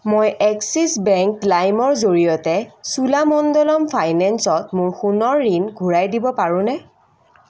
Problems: constant background noise